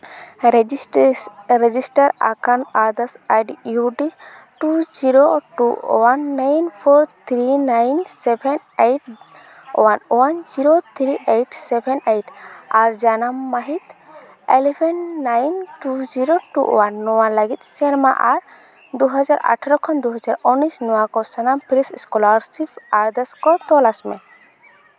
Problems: none marked